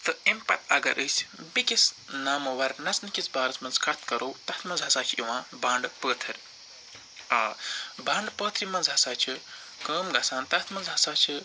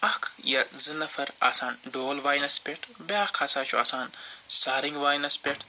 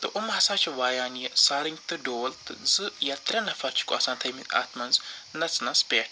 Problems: constant background noise